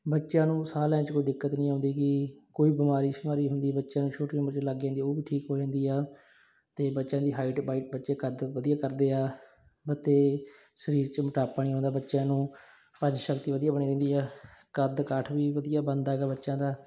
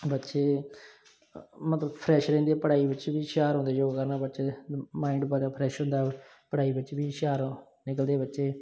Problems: none marked